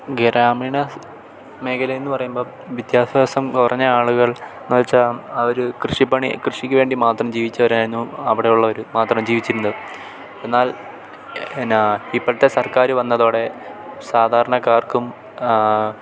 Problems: none marked